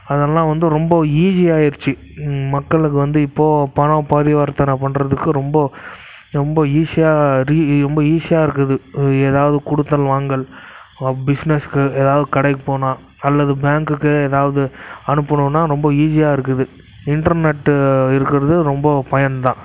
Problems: none marked